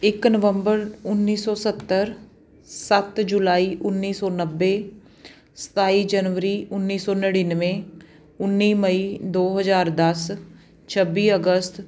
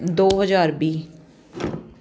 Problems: background sounds at intervals